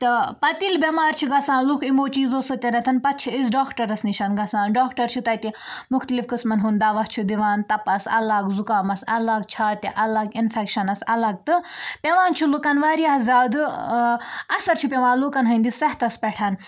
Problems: none marked